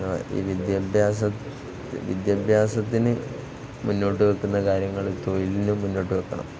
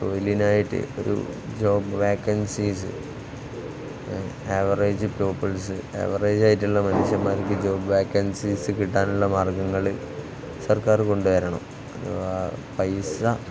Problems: constant background noise, low volume